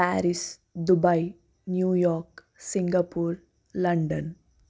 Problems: constant background noise